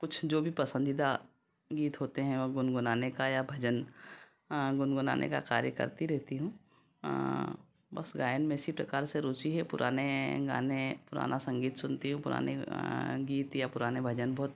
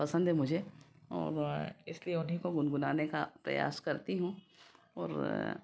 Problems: constant background noise